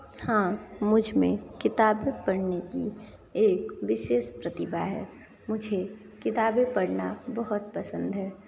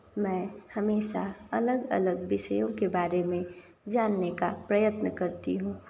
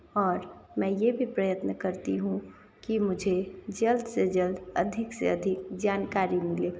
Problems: none marked